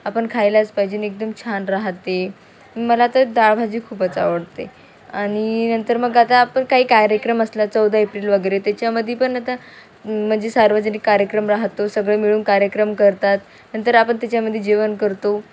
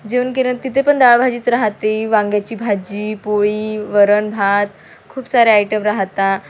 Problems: none marked